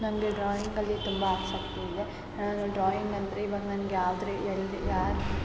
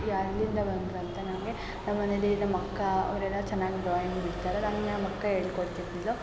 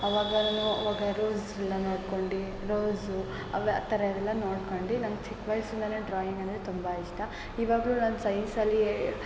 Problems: background sounds at intervals